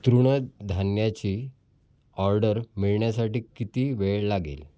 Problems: none marked